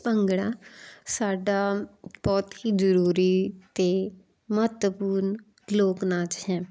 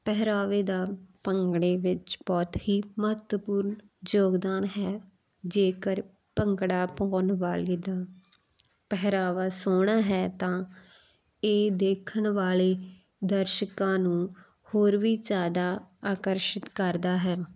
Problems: constant background noise